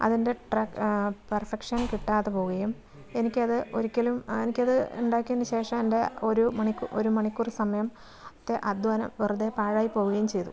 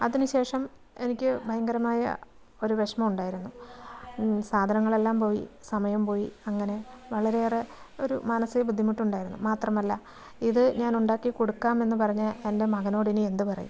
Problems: background conversations at intervals, low volume